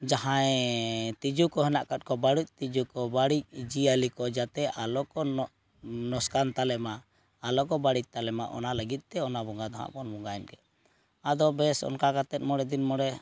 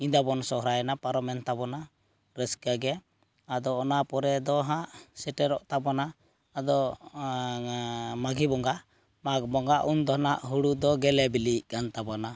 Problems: none marked